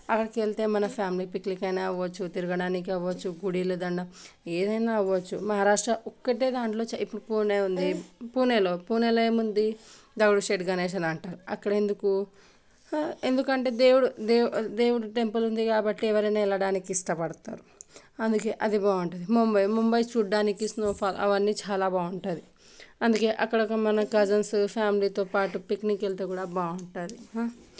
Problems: none marked